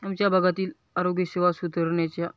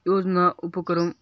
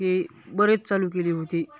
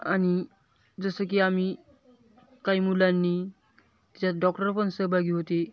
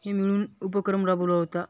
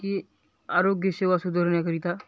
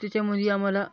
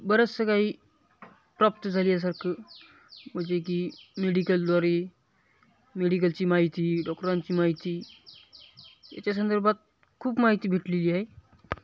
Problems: none marked